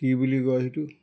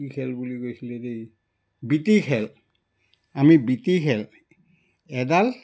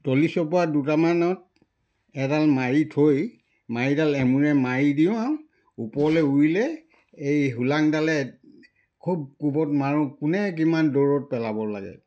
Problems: background sounds at intervals